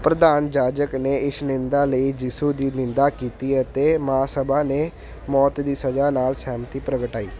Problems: none marked